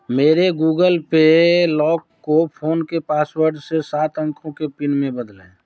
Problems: background sounds at intervals